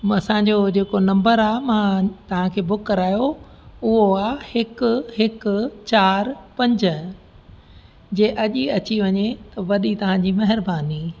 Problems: constant background noise, echo